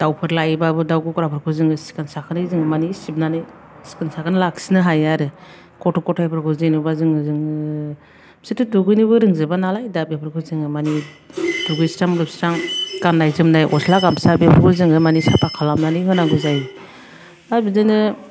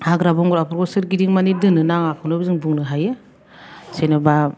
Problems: low volume